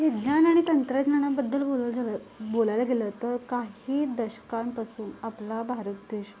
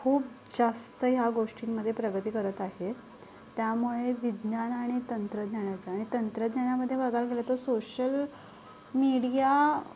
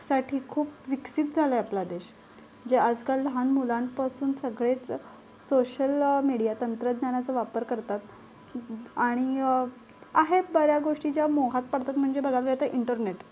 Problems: constant background noise